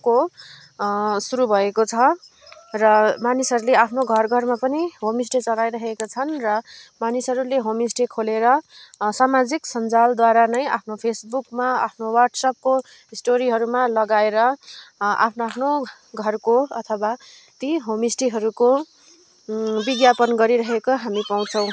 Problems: constant background noise